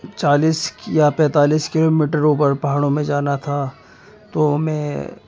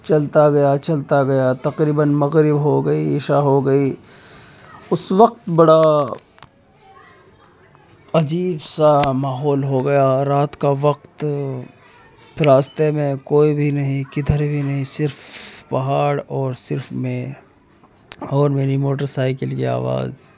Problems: background sounds at intervals, continuous background conversations